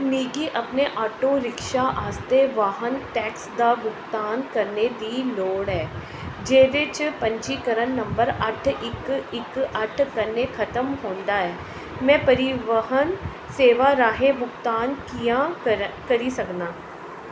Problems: constant background noise